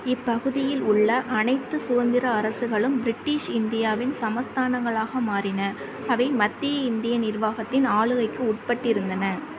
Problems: constant background noise